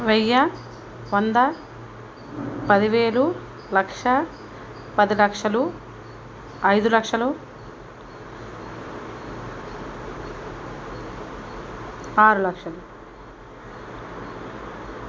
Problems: constant background noise